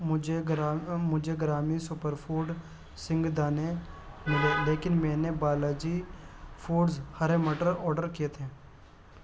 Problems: constant background noise